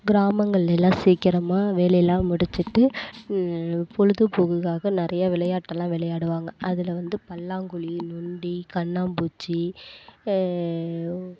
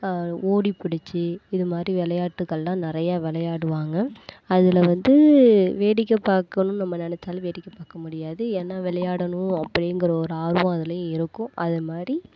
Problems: none marked